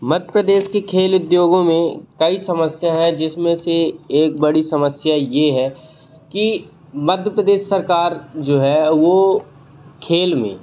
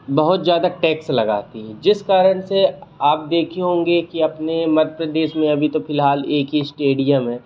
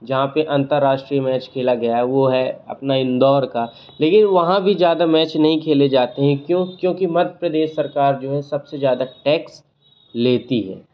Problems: constant background noise